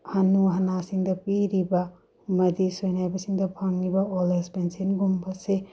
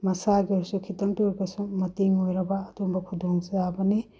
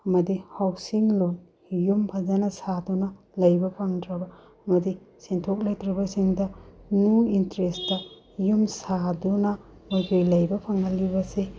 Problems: low volume